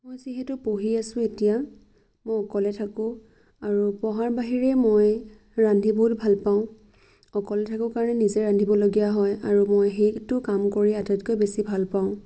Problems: none marked